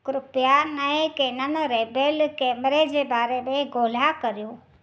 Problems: none marked